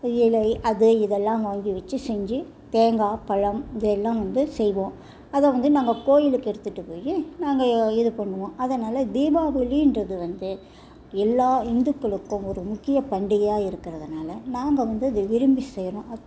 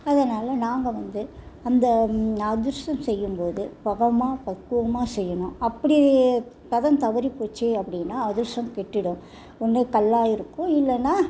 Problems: none marked